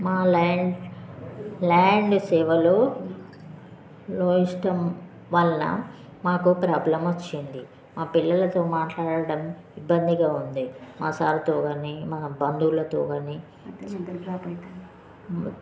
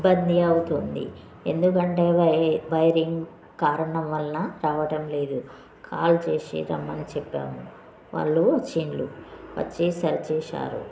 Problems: continuous background conversations